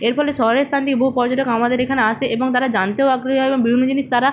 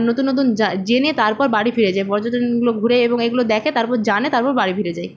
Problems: constant background noise